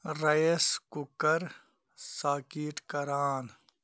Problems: background sounds at intervals